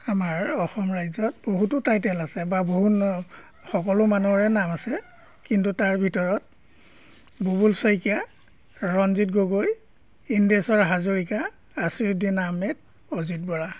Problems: background sounds at intervals